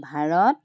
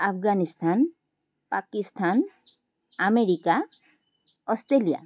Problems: constant background noise